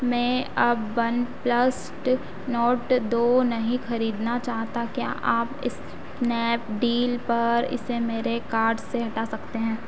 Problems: constant background noise